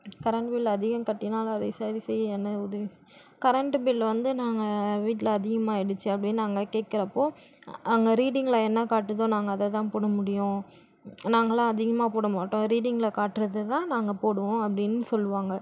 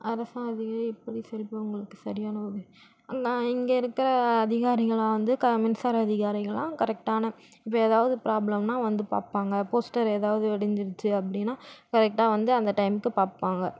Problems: none marked